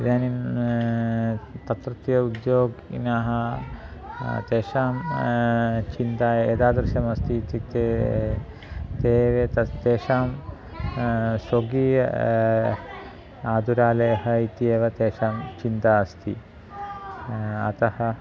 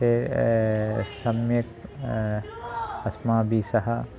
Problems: constant background noise, continuous background conversations